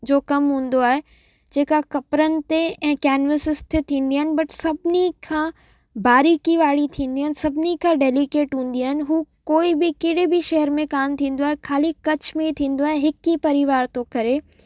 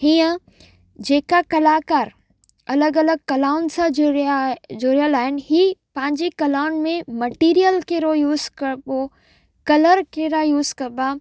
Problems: background sounds at intervals, echo